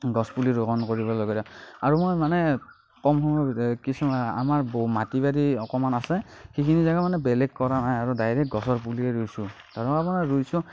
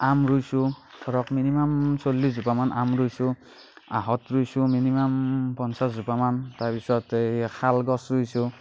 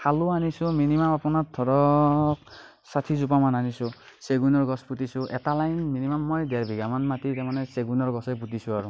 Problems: background sounds at intervals